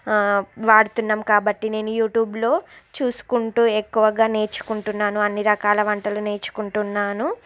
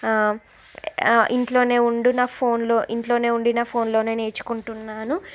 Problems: none marked